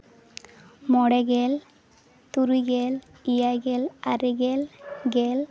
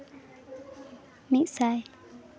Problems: continuous background conversations